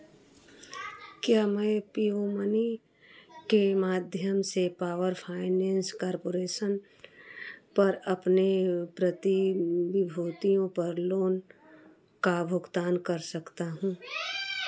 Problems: background conversations at intervals